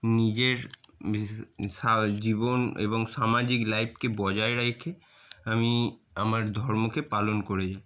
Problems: constant background noise